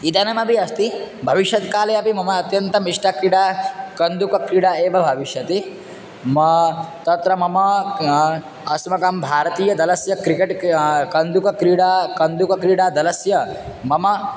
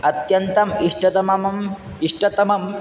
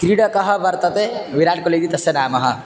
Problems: none marked